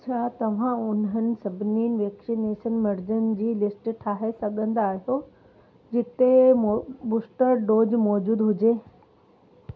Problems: constant background noise